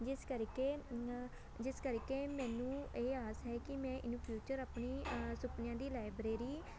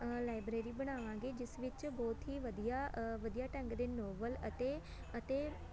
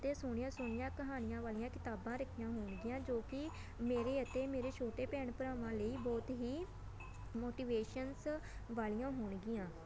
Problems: constant background noise, background conversations at intervals